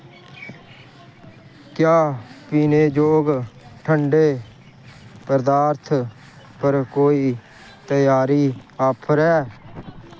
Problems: constant background noise